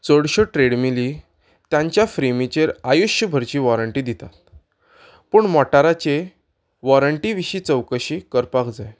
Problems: none marked